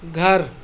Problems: constant background noise